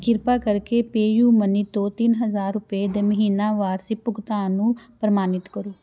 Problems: constant background noise